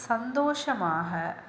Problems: none marked